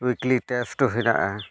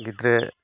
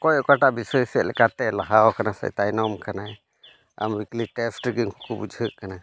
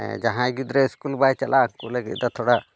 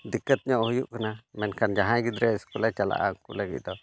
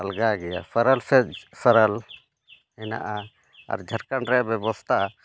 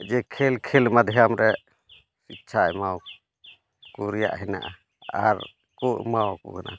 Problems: constant background noise